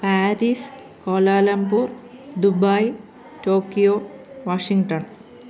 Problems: continuous background conversations